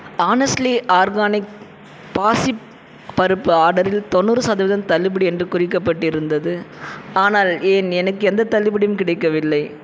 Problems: background sounds at intervals